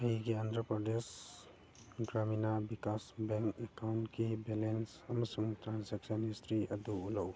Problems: background conversations at intervals, low volume